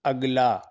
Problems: none marked